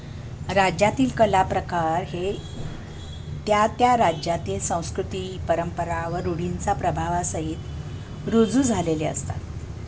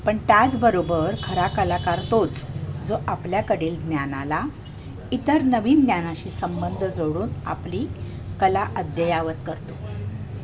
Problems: constant background noise